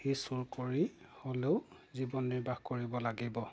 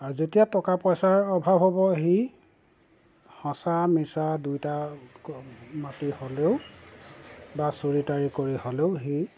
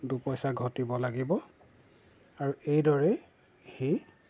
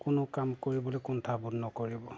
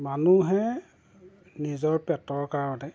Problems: background sounds at intervals